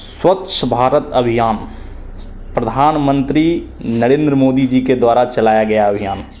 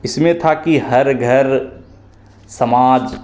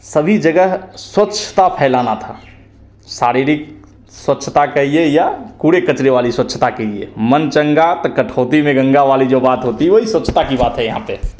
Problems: constant background noise